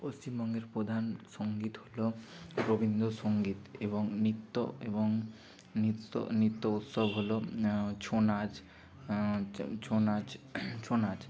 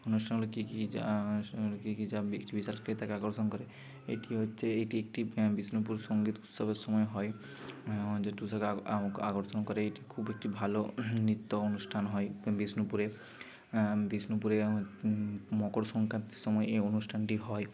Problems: none marked